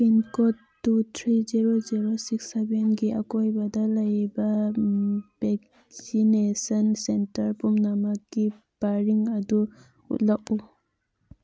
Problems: none marked